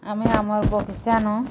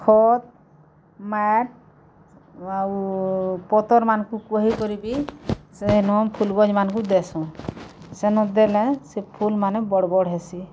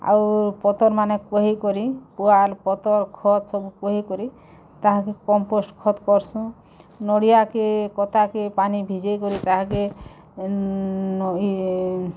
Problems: background sounds at intervals